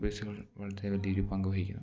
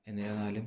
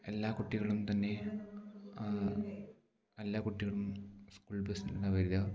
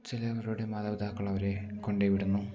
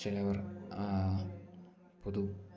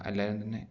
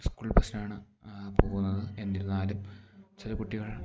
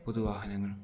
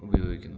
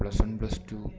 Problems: low volume